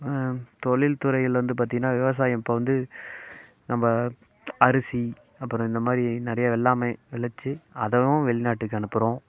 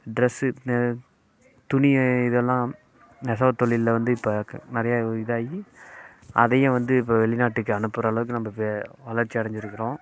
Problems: constant background noise